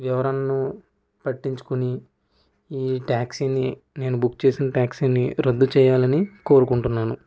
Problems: constant background noise